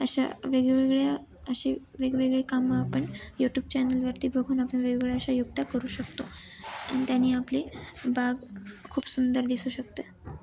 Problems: constant background noise, continuous background conversations